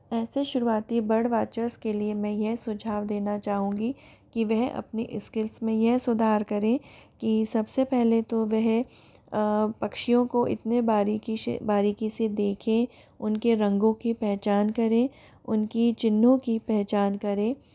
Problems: background sounds at intervals